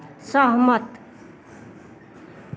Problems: constant background noise